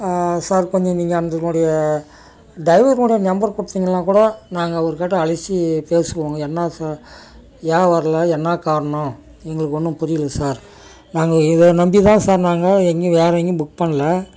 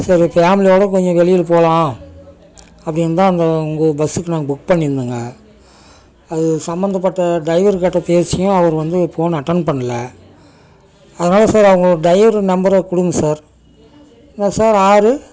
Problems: background sounds at intervals